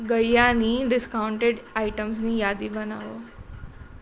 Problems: constant background noise